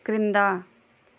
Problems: none marked